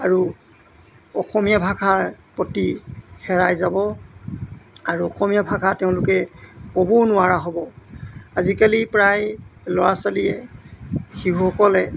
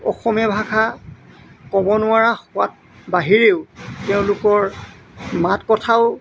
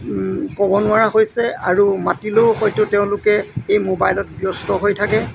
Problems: none marked